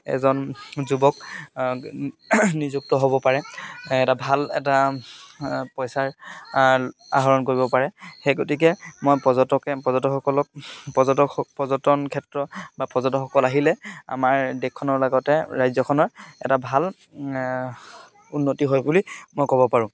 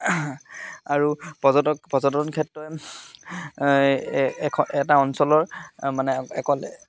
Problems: none marked